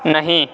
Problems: none marked